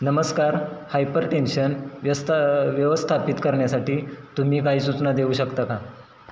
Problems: constant background noise